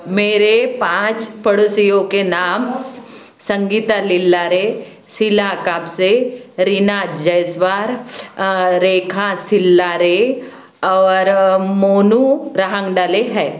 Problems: background conversations at intervals